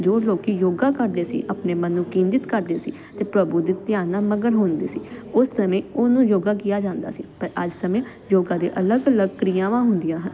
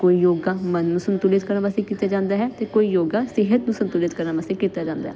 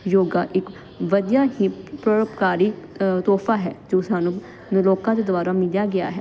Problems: constant background noise